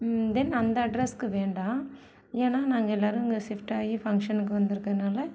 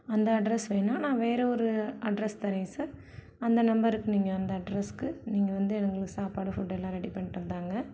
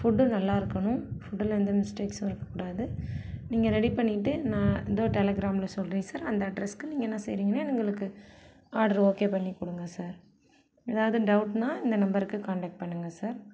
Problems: none marked